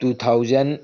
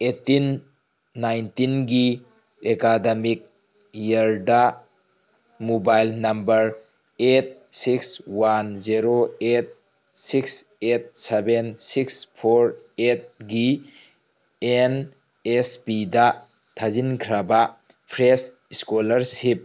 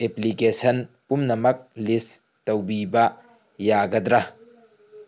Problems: background sounds at intervals